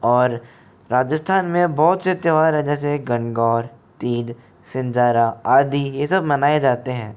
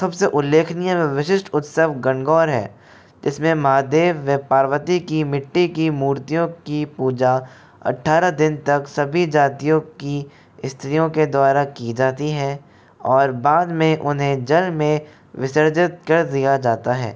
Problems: none marked